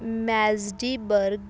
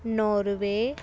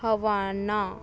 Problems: background sounds at intervals